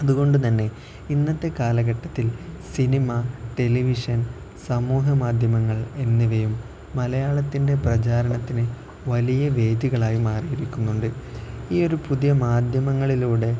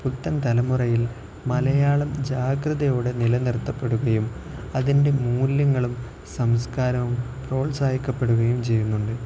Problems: none marked